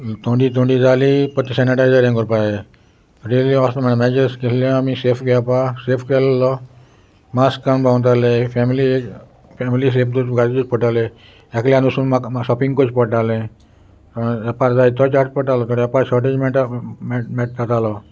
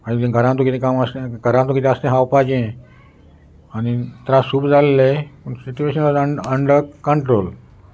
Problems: constant background noise